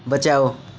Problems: constant background noise